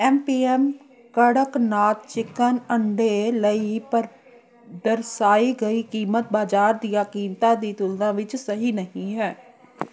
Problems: continuous background conversations